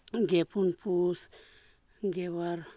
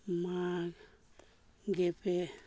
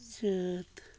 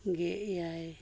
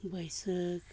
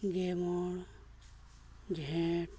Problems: low volume